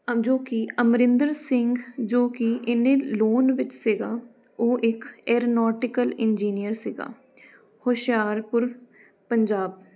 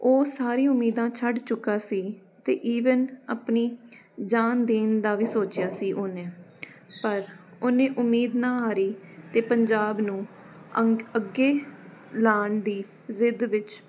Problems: none marked